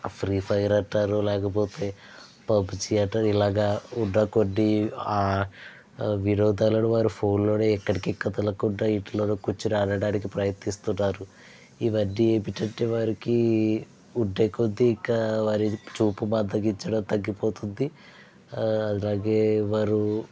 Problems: none marked